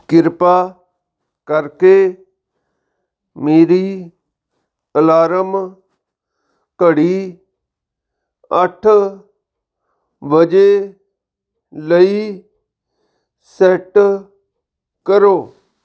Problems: background sounds at intervals